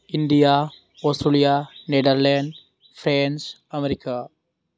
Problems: constant background noise